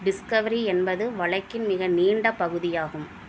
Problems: none marked